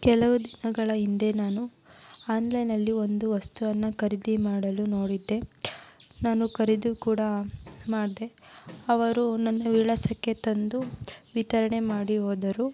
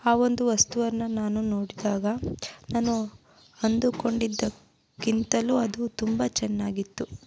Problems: constant background noise